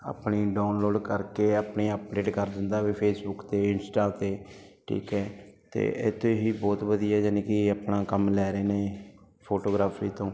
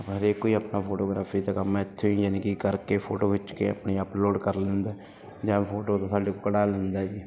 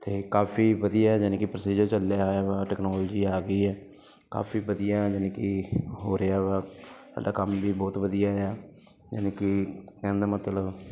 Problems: constant background noise